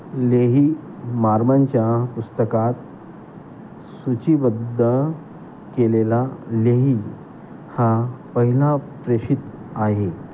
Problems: constant background noise